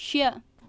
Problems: constant background noise